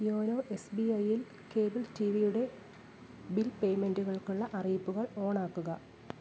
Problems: low volume